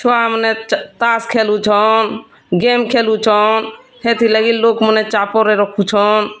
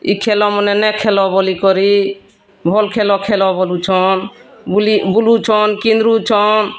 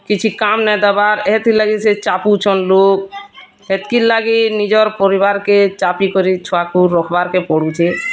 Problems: constant background noise